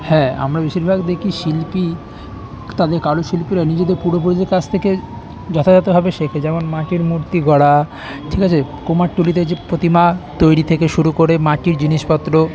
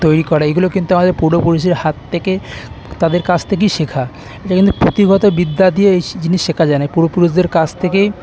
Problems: none marked